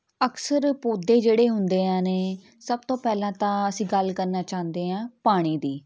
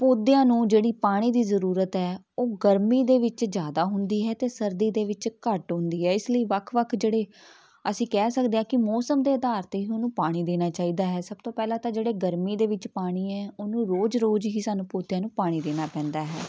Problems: background sounds at intervals, background conversations at intervals